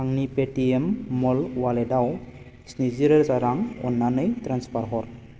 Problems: constant background noise